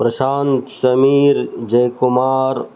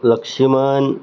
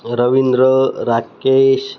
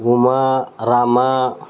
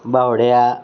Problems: constant background noise, background conversations at intervals